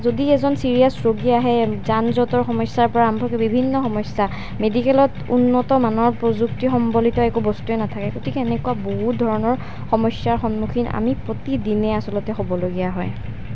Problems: constant background noise